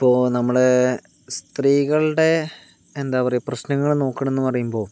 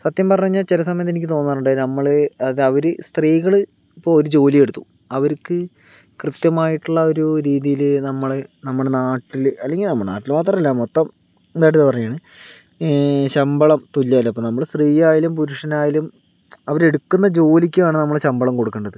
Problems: none marked